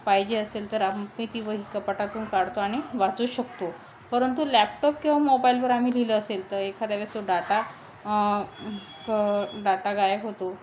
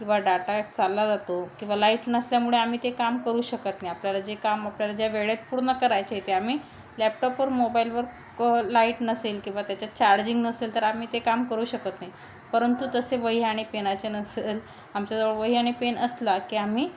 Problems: none marked